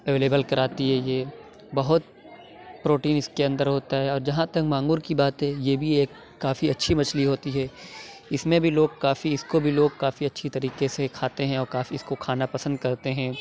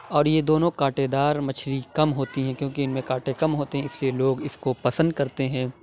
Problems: background conversations at intervals